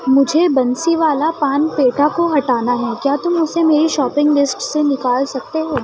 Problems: constant background noise, background conversations at intervals